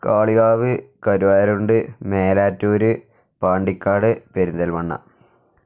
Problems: none marked